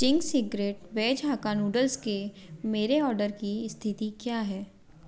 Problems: none marked